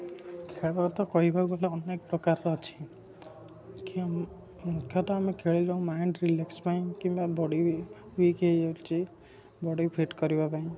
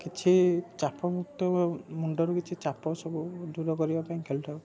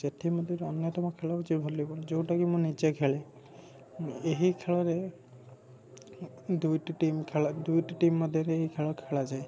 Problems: background sounds at intervals, background conversations at intervals, low volume